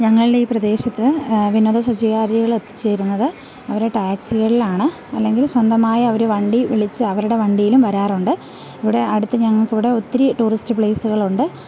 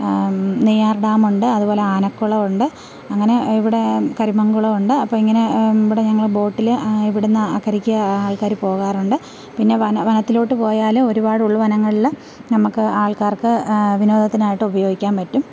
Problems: background sounds at intervals